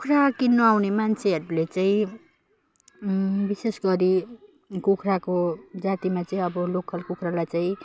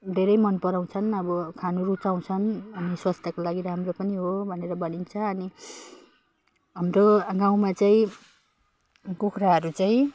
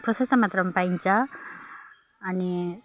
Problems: none marked